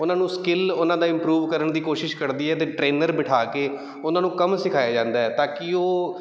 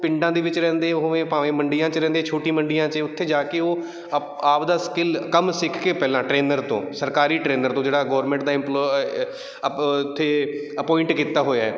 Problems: none marked